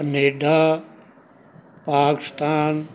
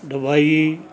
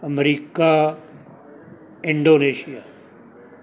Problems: background sounds at intervals, background conversations at intervals